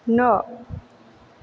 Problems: none marked